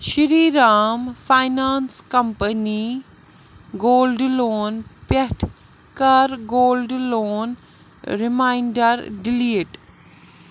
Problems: constant background noise